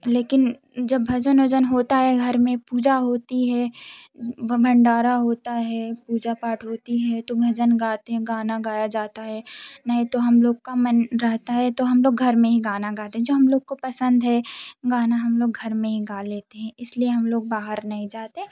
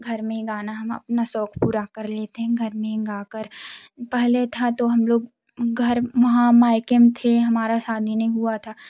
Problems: none marked